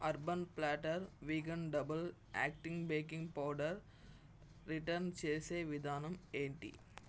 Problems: none marked